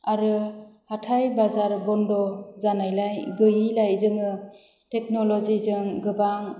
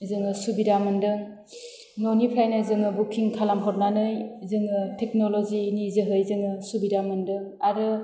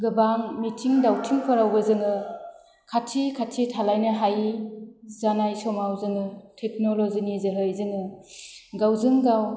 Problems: low volume